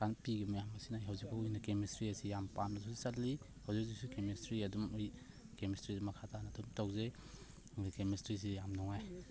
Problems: constant background noise, low volume